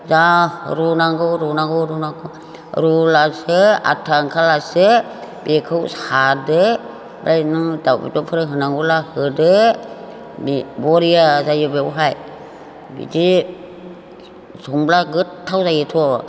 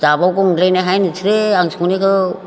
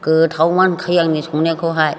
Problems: none marked